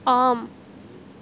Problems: constant background noise